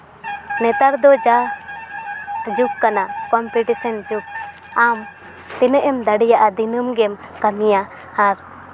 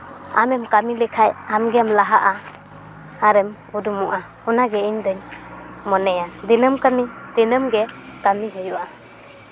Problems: constant background noise, continuous background conversations